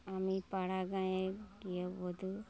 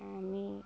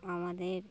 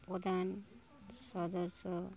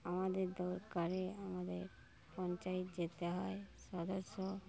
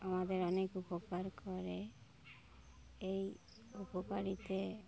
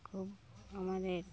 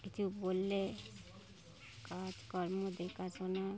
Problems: none marked